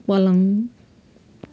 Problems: background sounds at intervals